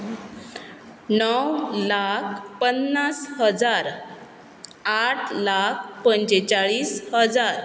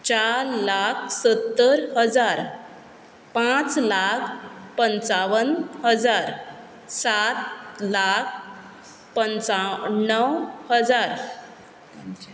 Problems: background sounds at intervals